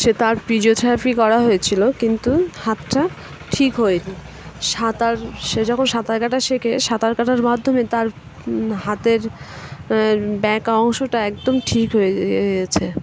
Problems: constant background noise, background conversations at intervals